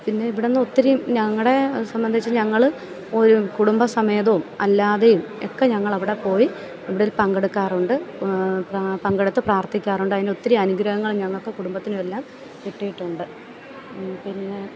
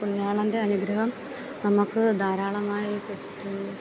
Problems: none marked